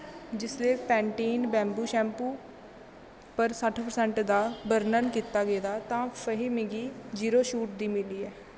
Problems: constant background noise